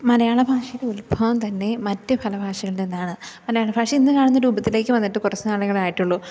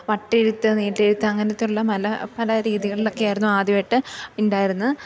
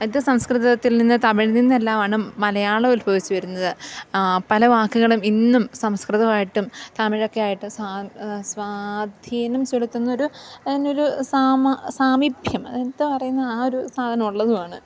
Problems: background sounds at intervals